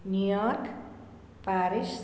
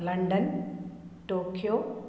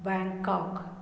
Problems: none marked